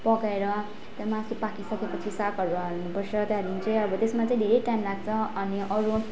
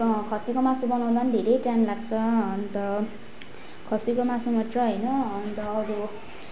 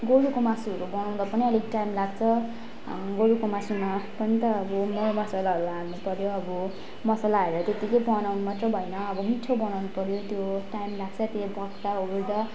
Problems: constant background noise, continuous background conversations